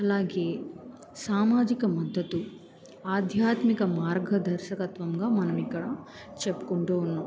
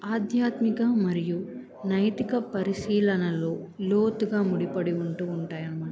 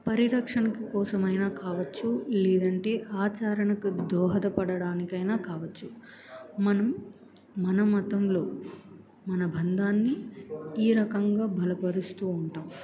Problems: background conversations at intervals